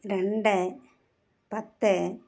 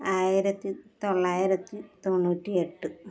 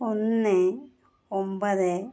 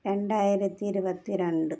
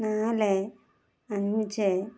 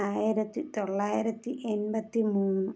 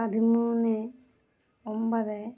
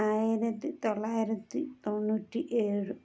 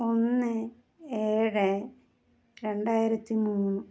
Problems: none marked